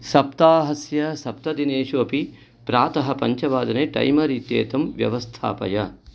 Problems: none marked